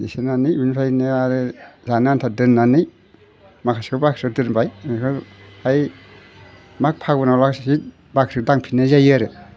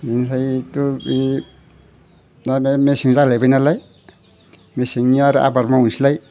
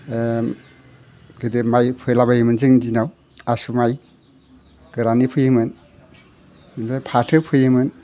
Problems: none marked